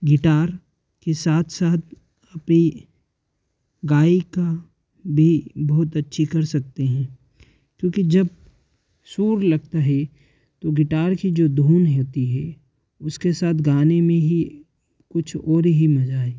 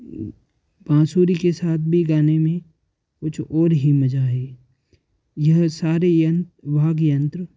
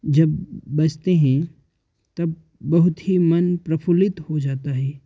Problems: background sounds at intervals